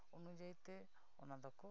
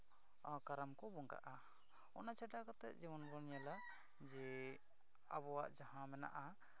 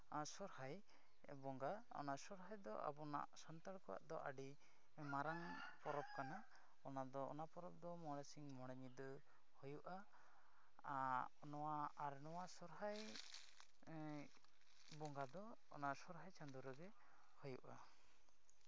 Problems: none marked